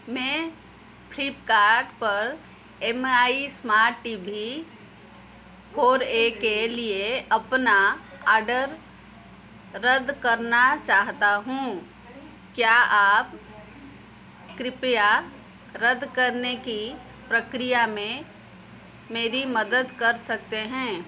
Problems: background sounds at intervals